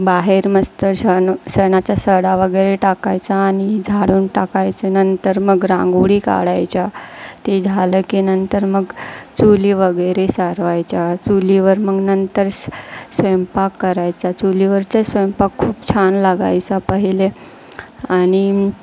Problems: constant background noise, background conversations at intervals